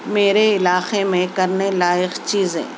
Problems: constant background noise